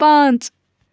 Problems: none marked